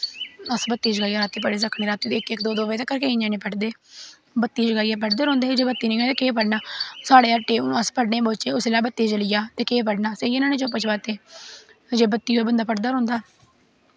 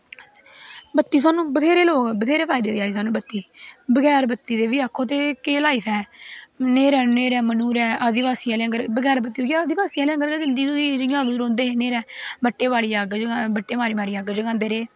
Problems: constant background noise